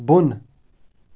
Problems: background sounds at intervals